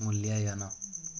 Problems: none marked